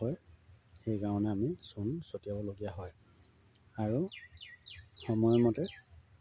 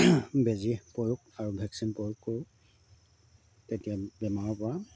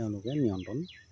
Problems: low volume